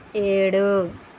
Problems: constant background noise